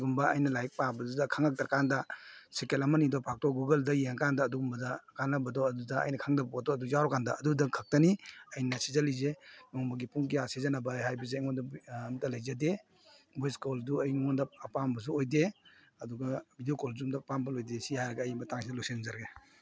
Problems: none marked